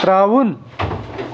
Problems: none marked